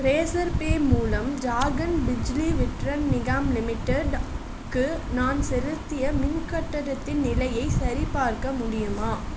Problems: constant background noise